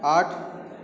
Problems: constant background noise